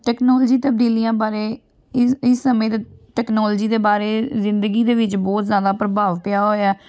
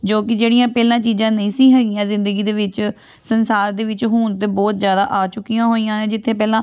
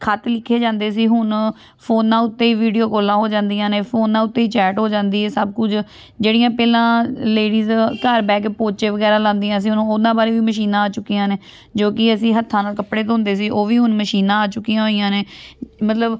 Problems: background sounds at intervals, background conversations at intervals